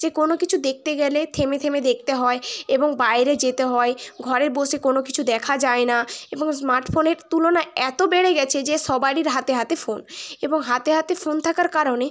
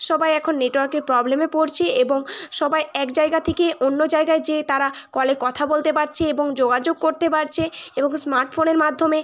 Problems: constant background noise